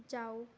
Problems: background sounds at intervals